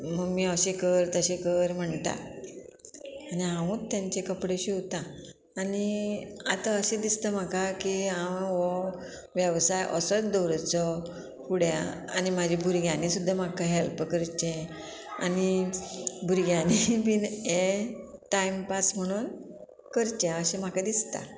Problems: constant background noise